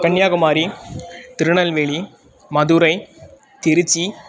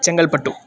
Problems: constant background noise